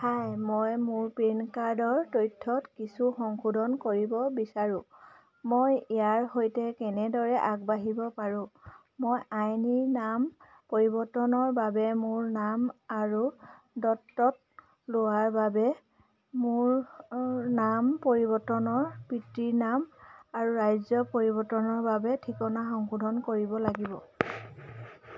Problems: constant background noise